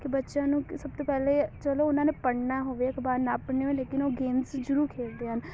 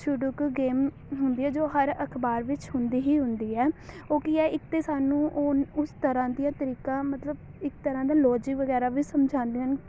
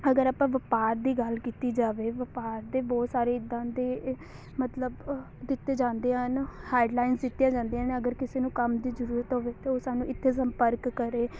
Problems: constant background noise, background conversations at intervals